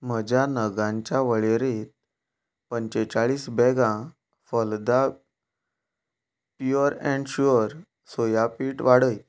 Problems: background sounds at intervals